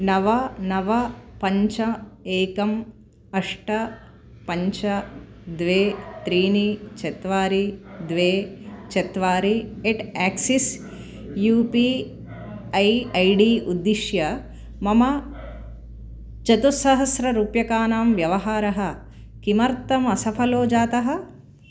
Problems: continuous background conversations